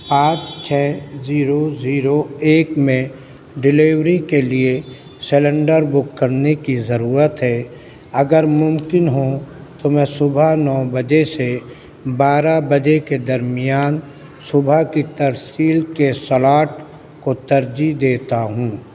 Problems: constant background noise